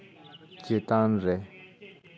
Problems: background sounds at intervals